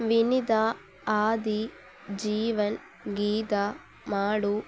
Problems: none marked